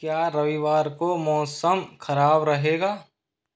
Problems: constant background noise